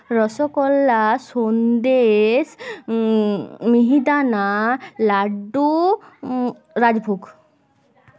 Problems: continuous background conversations